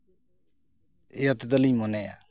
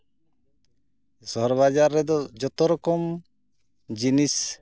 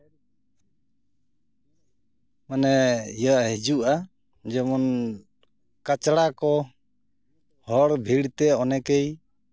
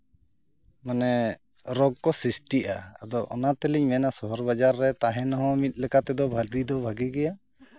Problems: background sounds at intervals